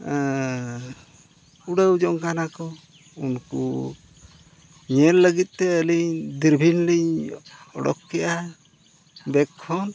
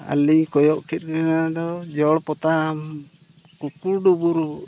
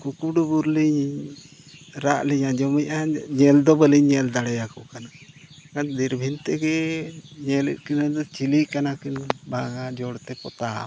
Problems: constant background noise, background conversations at intervals